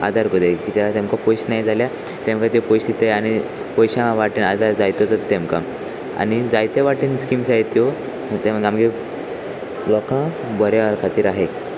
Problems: constant background noise, continuous background conversations